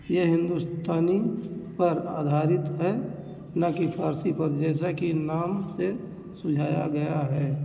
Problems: none marked